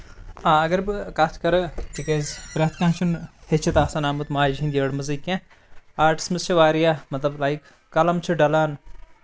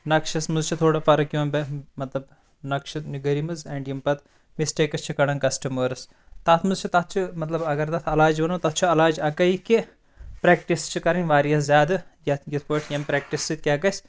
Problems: constant background noise